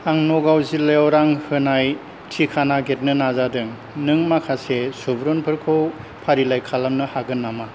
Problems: low volume